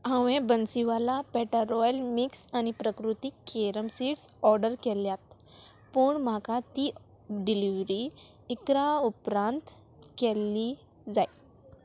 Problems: constant background noise